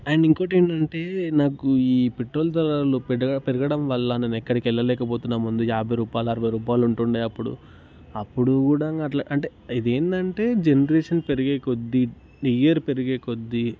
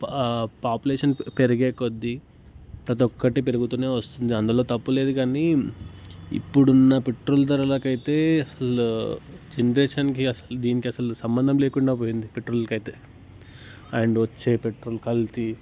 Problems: constant background noise